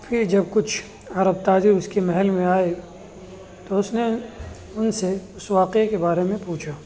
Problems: constant background noise